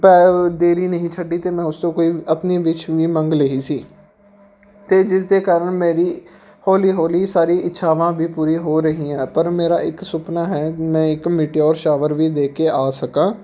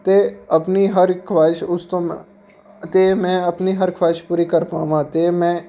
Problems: background sounds at intervals